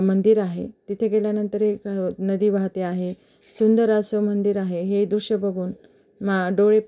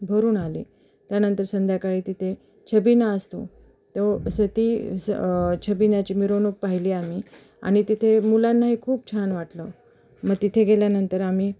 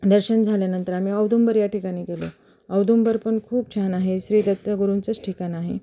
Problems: background sounds at intervals